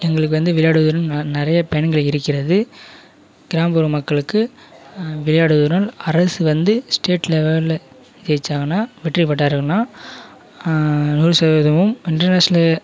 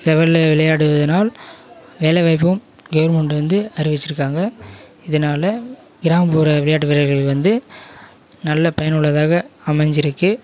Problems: constant background noise, continuous background conversations